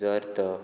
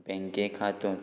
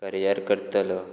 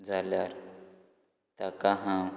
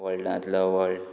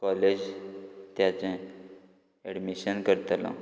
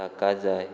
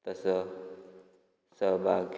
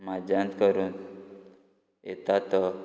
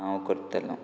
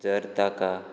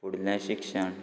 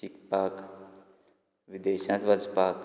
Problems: background sounds at intervals